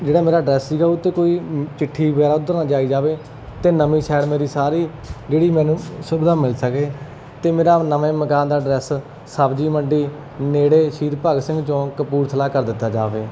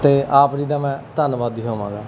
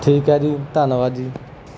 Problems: constant background noise